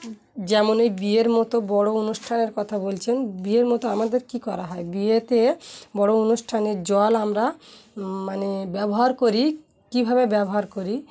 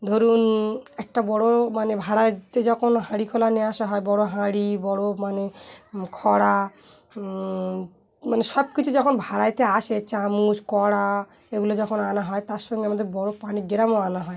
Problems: constant background noise